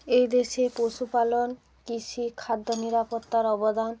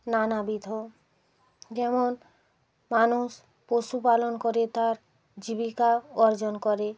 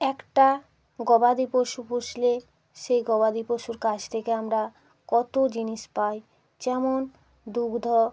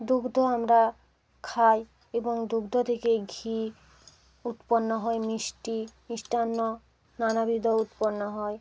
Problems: constant background noise, continuous background conversations